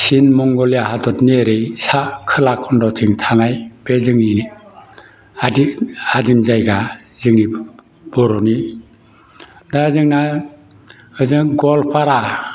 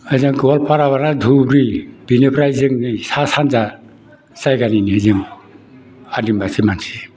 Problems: background conversations at intervals